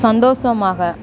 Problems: constant background noise